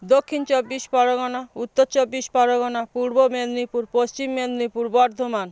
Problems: none marked